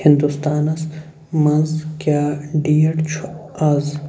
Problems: none marked